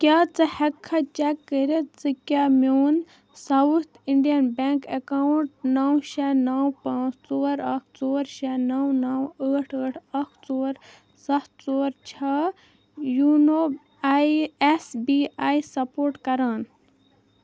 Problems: none marked